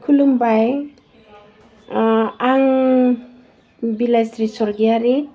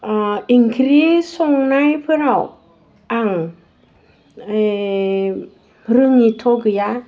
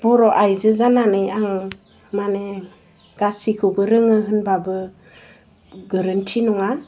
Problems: none marked